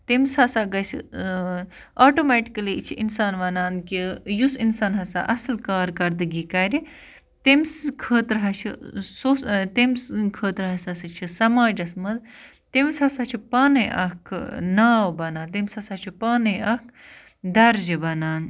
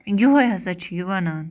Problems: constant background noise